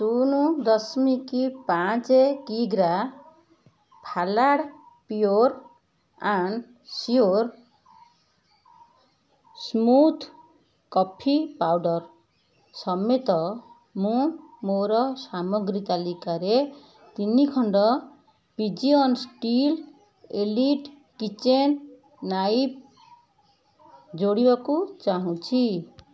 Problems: constant background noise